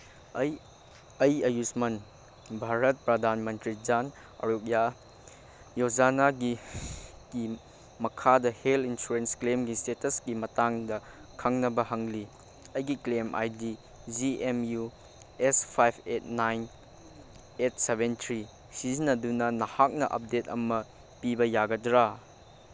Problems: background sounds at intervals